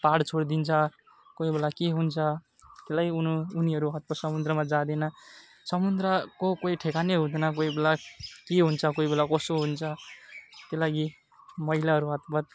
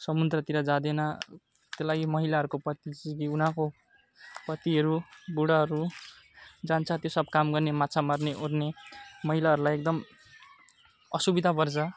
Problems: constant background noise